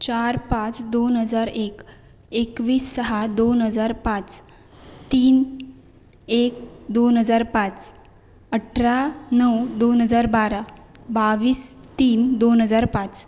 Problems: none marked